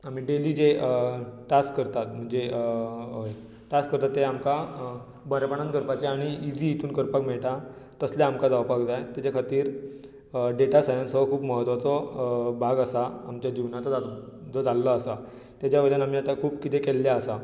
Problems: constant background noise